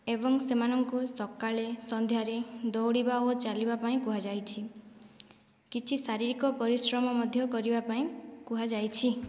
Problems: background sounds at intervals, low volume